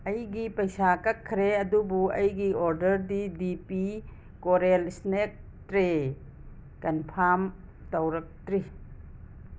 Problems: constant background noise